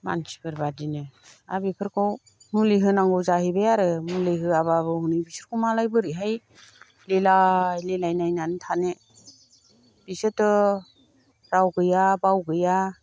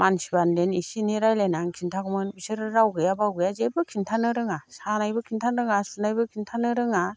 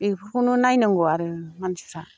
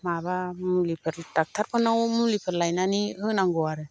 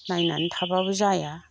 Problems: none marked